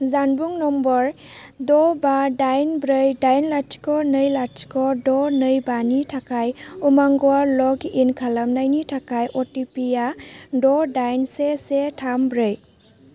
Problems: low volume